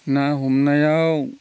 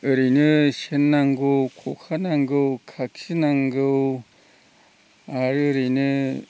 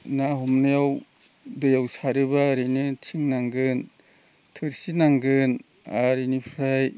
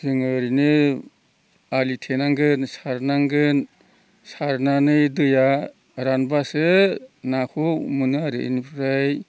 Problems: constant background noise